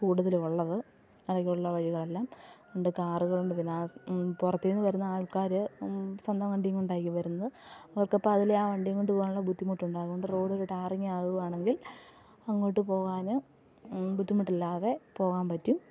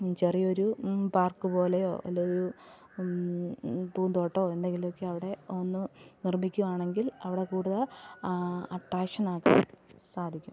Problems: background sounds at intervals, low volume